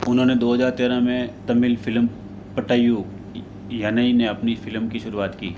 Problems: constant background noise